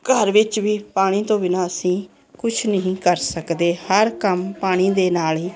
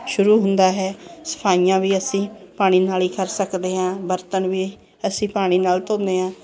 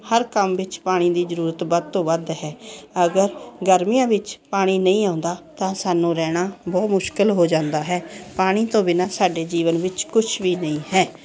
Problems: continuous background conversations